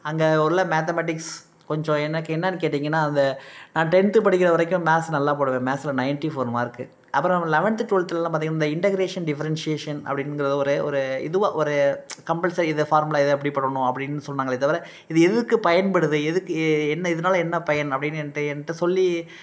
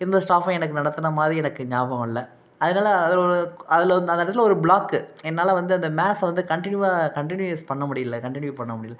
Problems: none marked